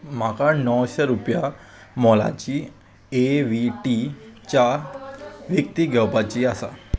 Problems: background sounds at intervals